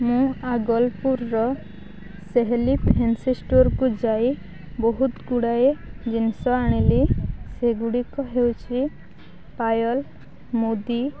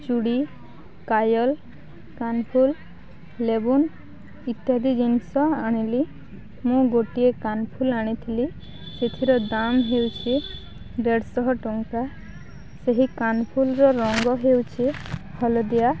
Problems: none marked